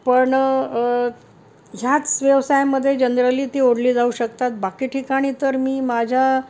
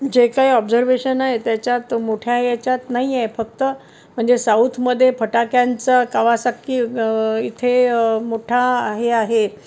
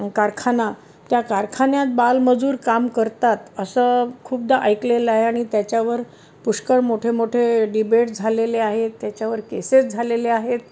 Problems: none marked